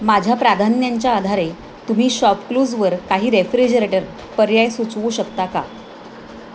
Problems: none marked